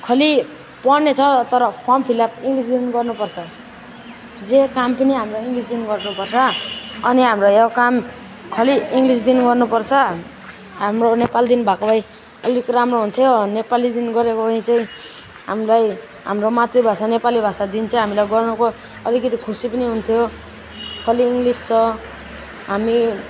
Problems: none marked